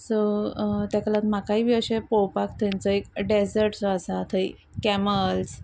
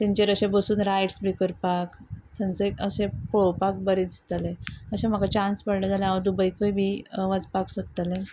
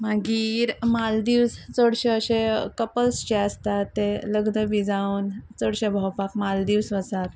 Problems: constant background noise